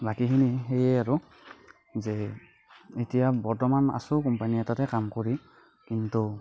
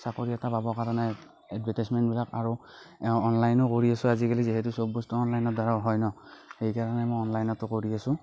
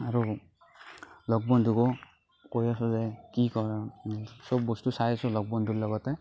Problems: none marked